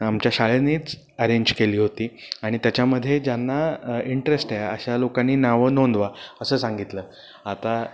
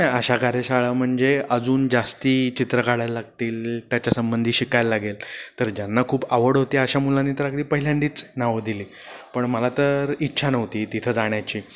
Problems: constant background noise